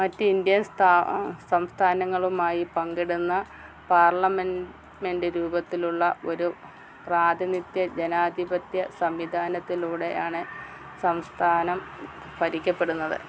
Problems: constant background noise